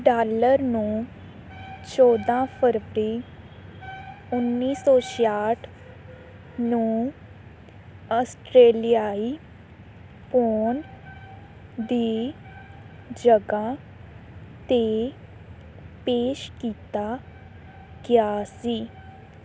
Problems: background sounds at intervals